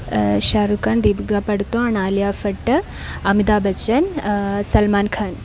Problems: constant background noise